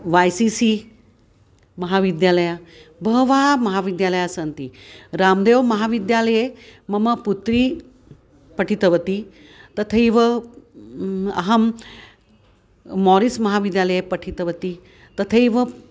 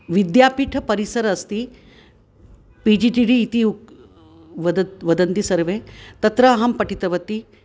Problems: constant background noise